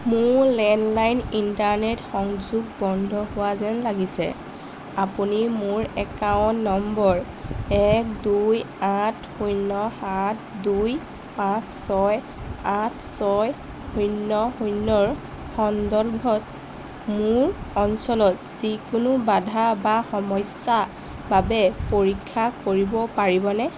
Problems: constant background noise